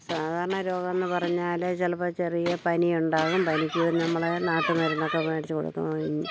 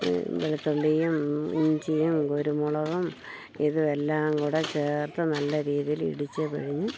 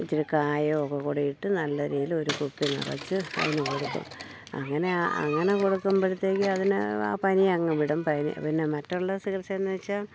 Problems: none marked